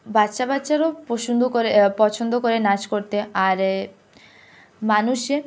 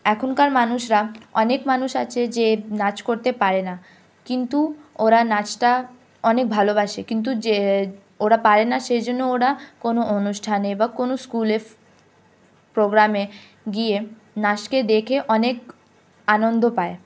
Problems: none marked